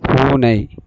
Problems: constant background noise